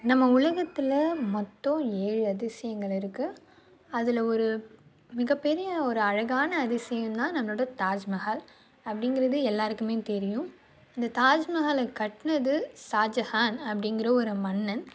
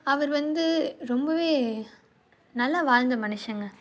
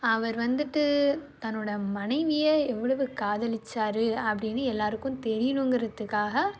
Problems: none marked